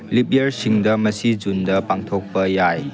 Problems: continuous background conversations